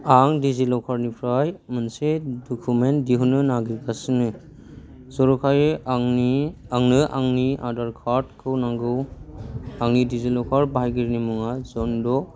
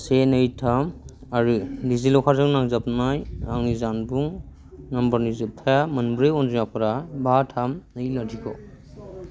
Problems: low volume